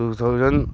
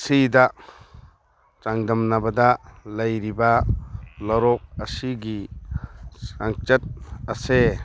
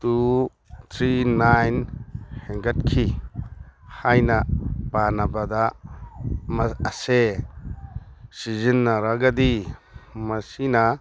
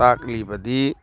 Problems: background sounds at intervals